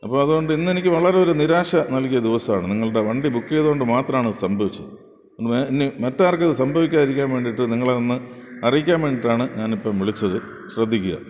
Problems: background sounds at intervals